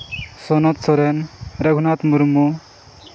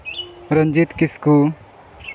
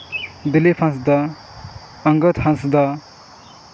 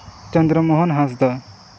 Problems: constant background noise